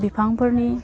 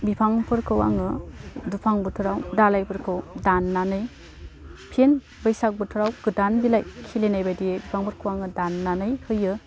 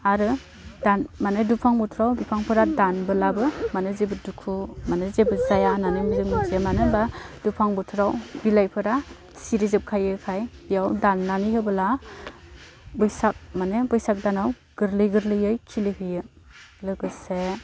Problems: constant background noise